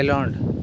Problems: constant background noise